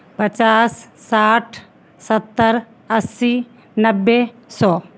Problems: constant background noise